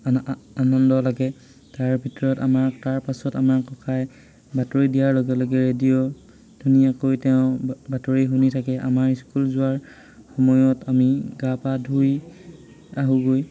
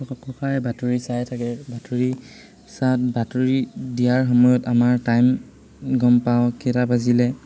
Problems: constant background noise, background conversations at intervals